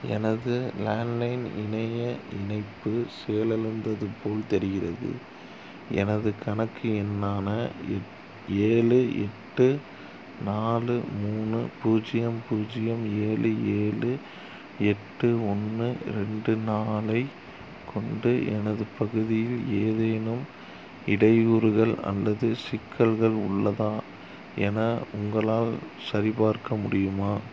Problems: constant background noise